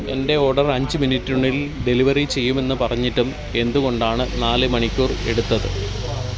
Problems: constant background noise